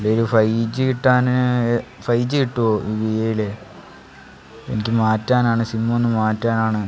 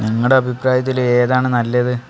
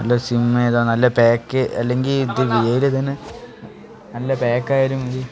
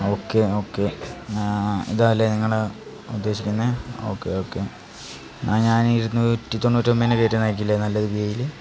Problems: constant background noise, background conversations at intervals